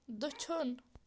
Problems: constant background noise